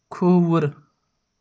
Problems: none marked